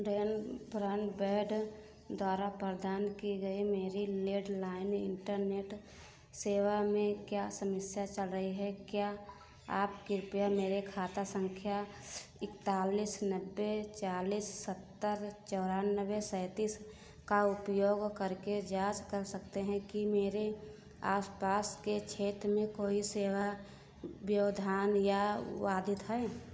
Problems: constant background noise